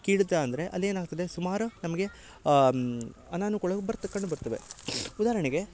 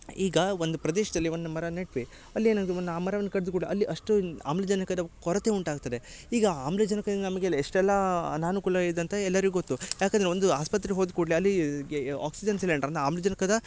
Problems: background sounds at intervals